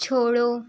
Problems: none marked